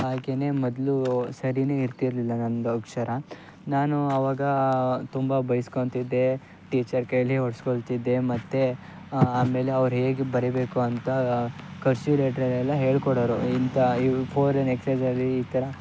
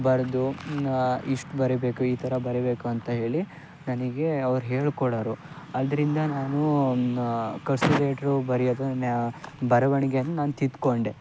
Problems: none marked